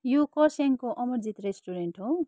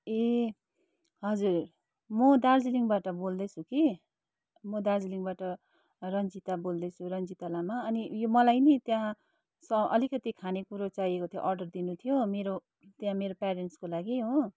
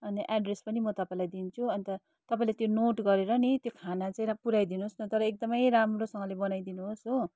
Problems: none marked